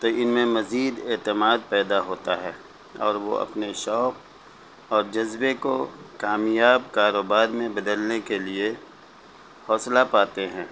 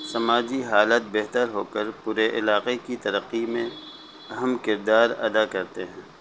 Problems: constant background noise, low volume